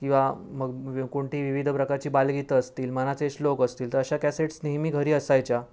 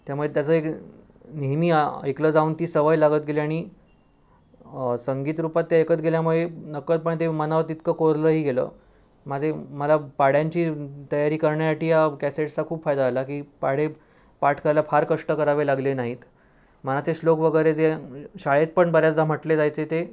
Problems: none marked